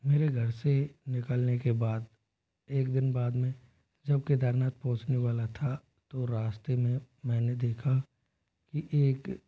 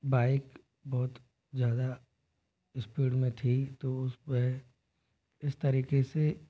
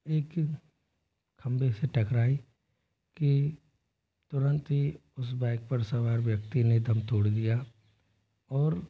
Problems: none marked